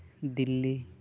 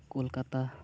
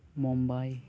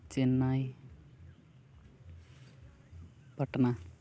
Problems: none marked